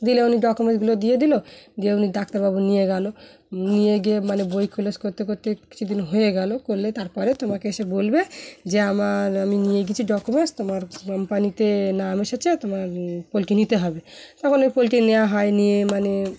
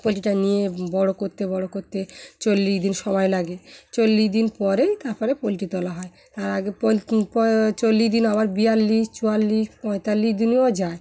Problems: background sounds at intervals, background conversations at intervals